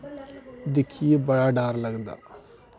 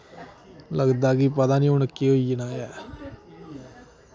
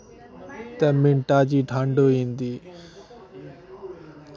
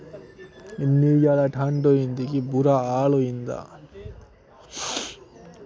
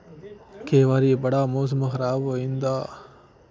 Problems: none marked